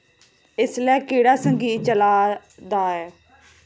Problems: background sounds at intervals